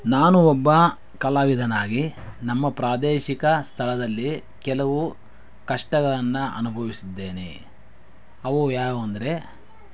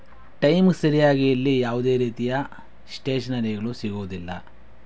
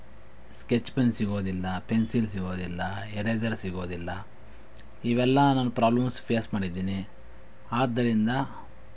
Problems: background sounds at intervals